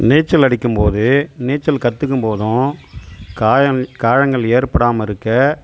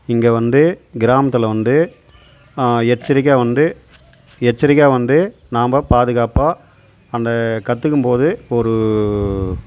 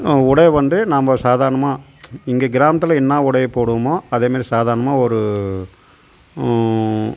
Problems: constant background noise